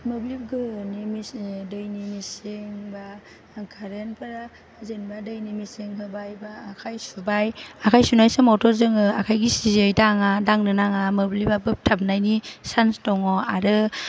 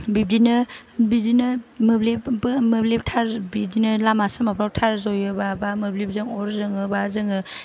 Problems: low volume